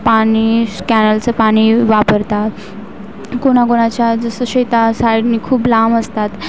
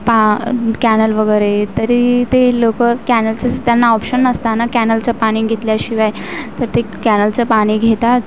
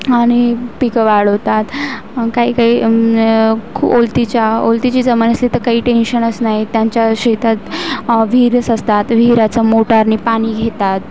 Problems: constant background noise